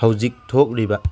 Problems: none marked